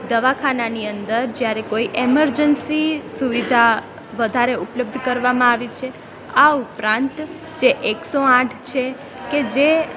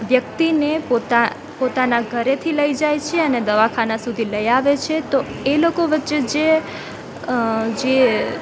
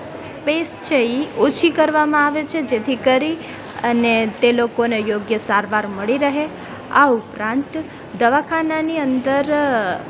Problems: constant background noise, background conversations at intervals